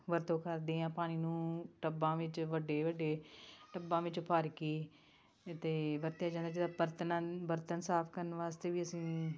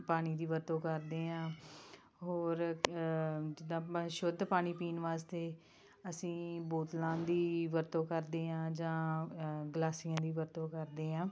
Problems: background conversations at intervals